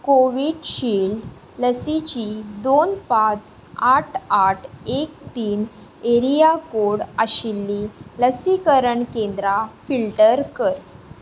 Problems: constant background noise